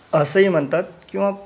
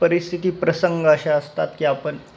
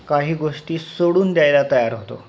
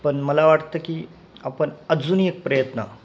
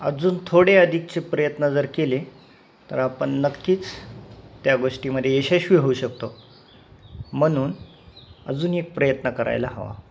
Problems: constant background noise